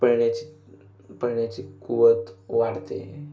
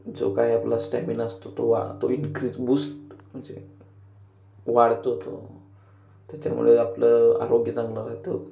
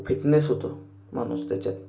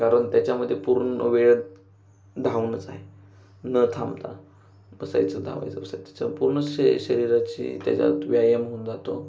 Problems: background sounds at intervals